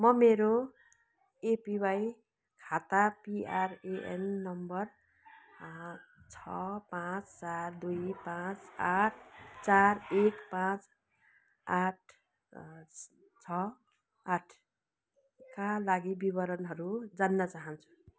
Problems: constant background noise